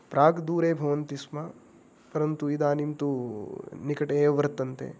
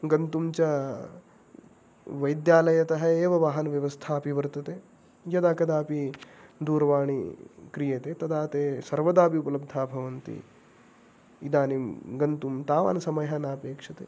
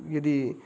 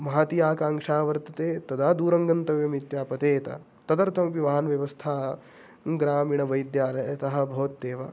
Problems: none marked